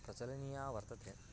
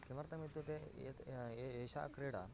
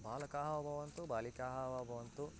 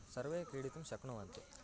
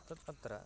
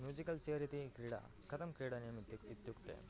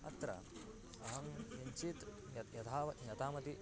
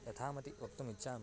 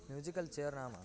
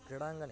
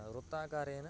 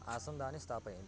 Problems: continuous background conversations, low volume